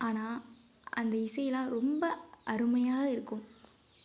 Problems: none marked